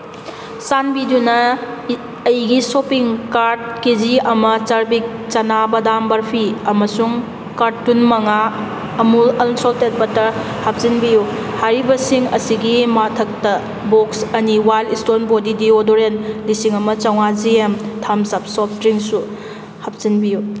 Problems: constant background noise